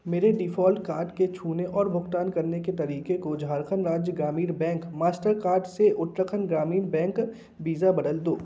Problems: constant background noise